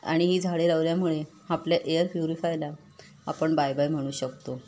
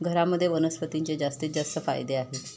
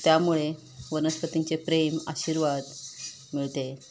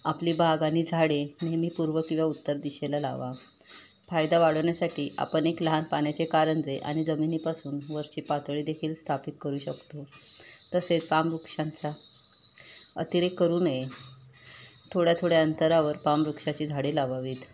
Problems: constant background noise